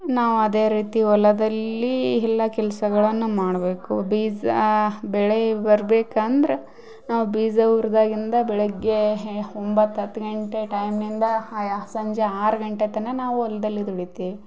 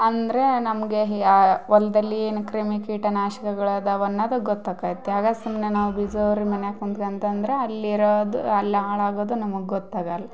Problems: none marked